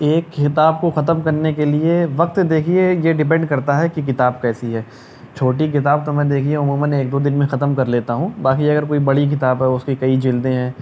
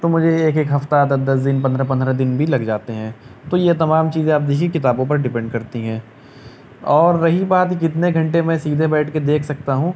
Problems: none marked